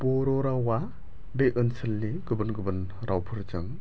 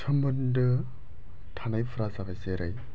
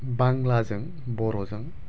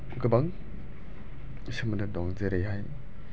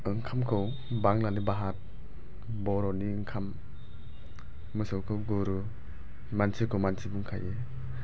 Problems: low volume